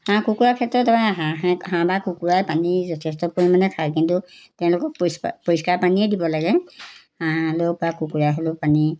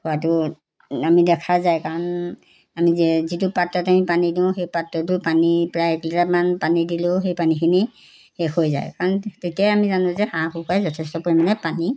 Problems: background sounds at intervals